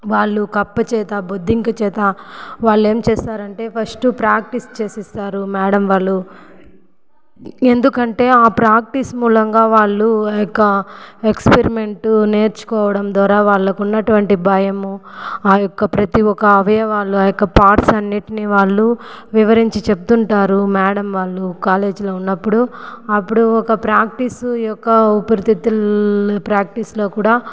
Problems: background sounds at intervals, echo